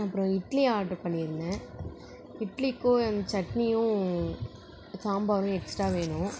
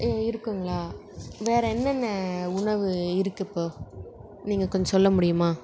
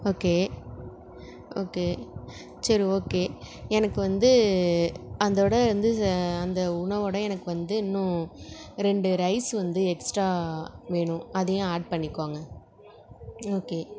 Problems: background conversations at intervals